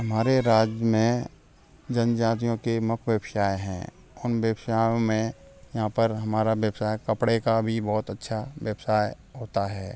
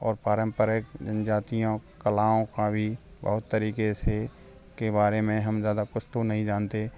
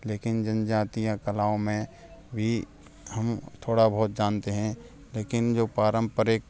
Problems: background sounds at intervals, background conversations at intervals